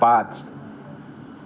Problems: background sounds at intervals